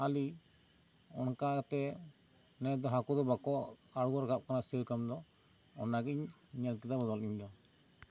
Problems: constant background noise